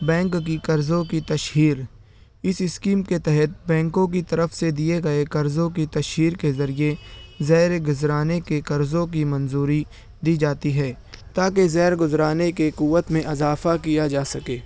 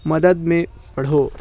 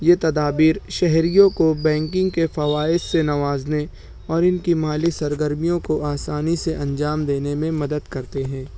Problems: none marked